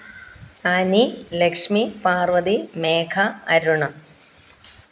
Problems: background sounds at intervals